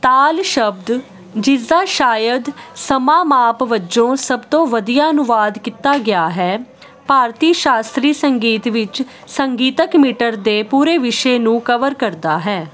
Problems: constant background noise